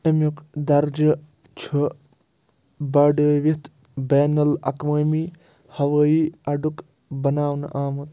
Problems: none marked